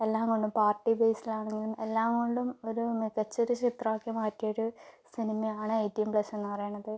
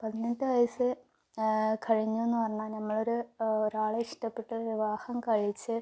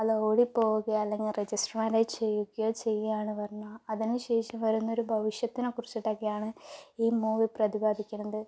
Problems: none marked